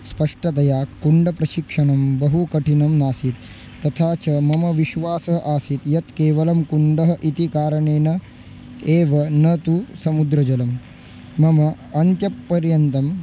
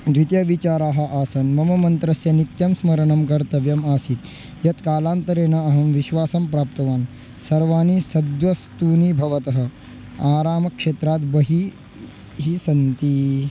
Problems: background sounds at intervals